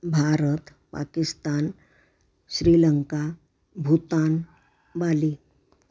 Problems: none marked